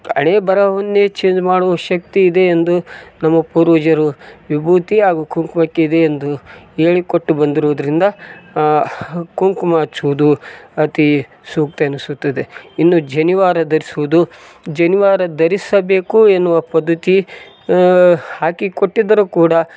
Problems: none marked